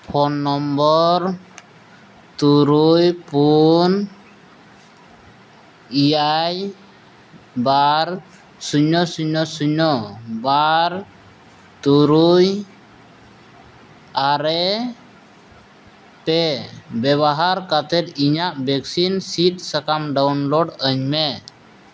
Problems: constant background noise